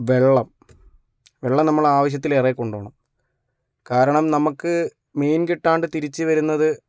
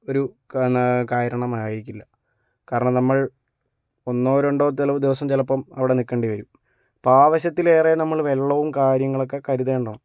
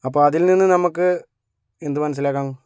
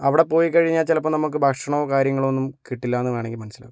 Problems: none marked